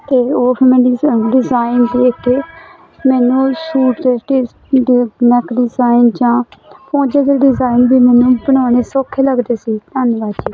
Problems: constant background noise